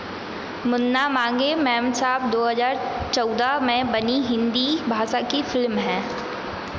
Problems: constant background noise